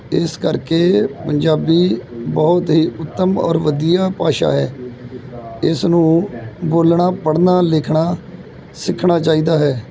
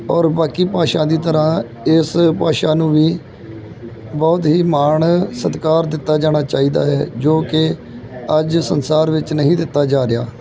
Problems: background sounds at intervals, background conversations at intervals